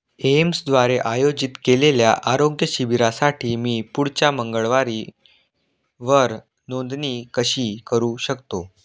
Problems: none marked